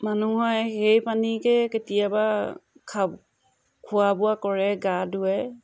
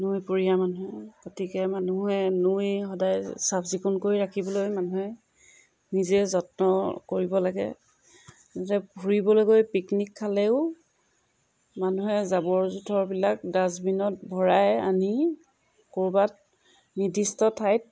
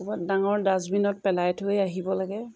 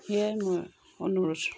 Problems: background sounds at intervals